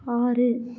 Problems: none marked